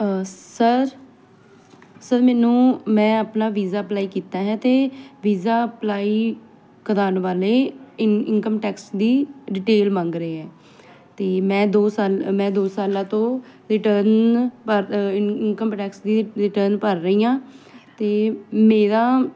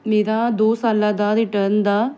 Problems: none marked